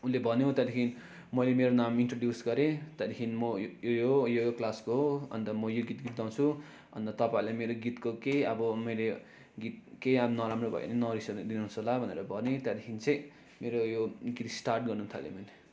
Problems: background conversations at intervals